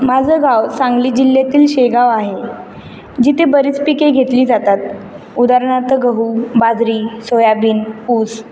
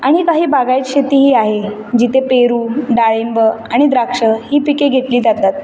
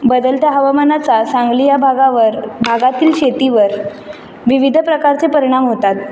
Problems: constant background noise